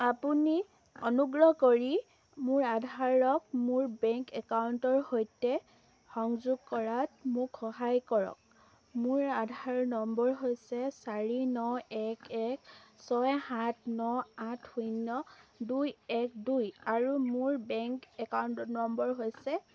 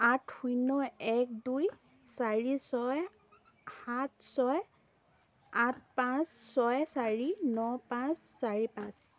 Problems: none marked